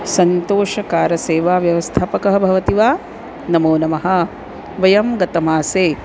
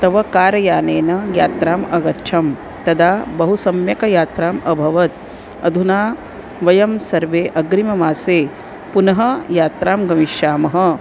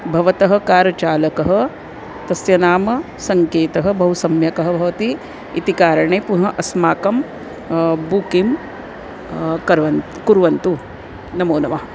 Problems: constant background noise